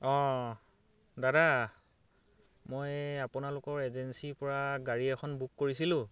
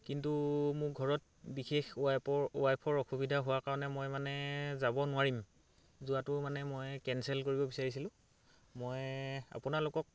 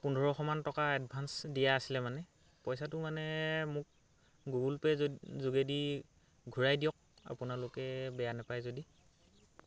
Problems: none marked